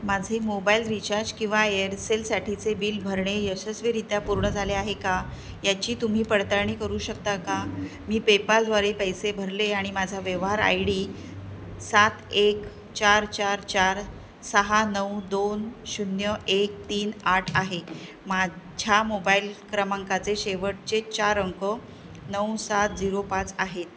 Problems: none marked